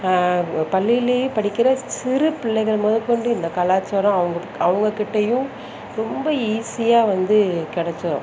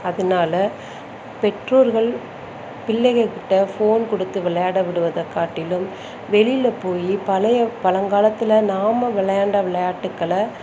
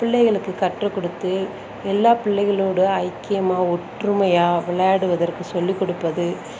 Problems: none marked